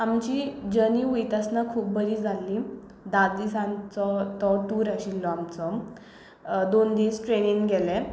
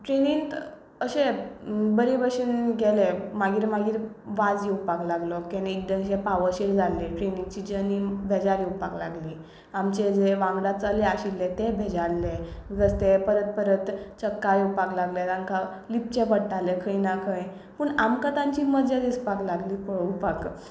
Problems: none marked